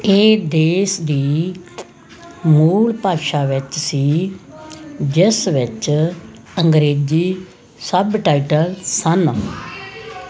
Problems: constant background noise, background conversations at intervals